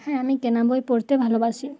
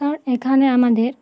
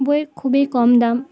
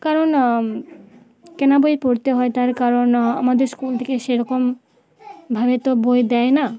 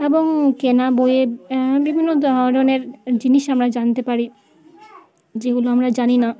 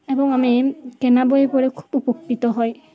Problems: constant background noise